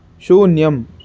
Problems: none marked